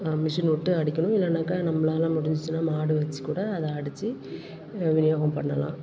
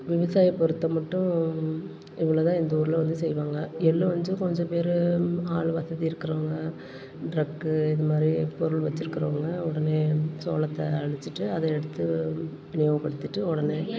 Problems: constant background noise, continuous background conversations